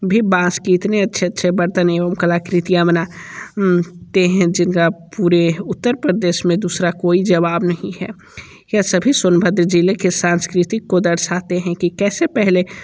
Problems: none marked